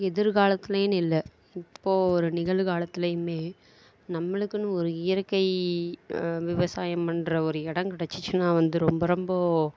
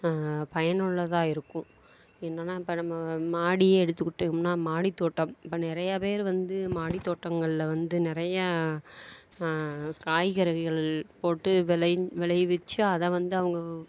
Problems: none marked